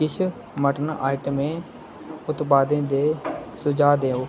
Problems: constant background noise